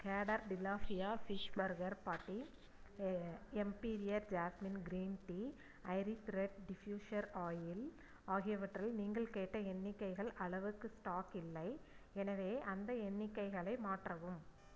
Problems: low volume